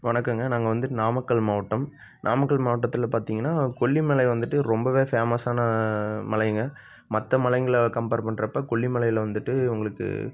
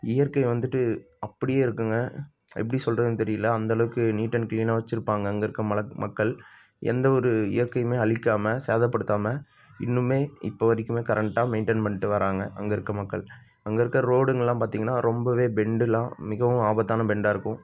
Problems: none marked